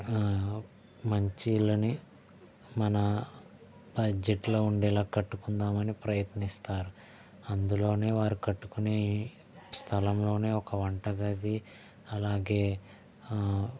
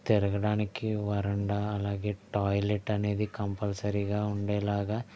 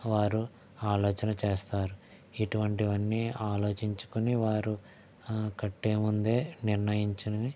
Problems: background sounds at intervals